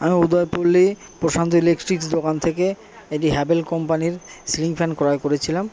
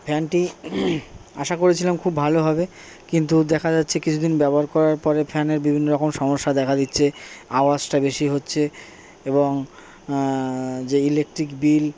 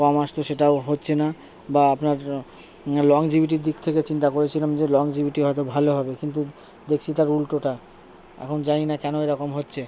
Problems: none marked